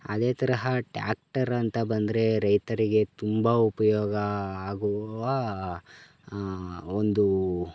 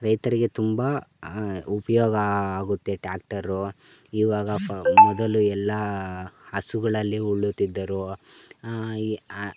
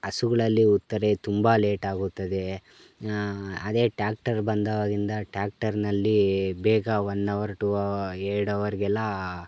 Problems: background sounds at intervals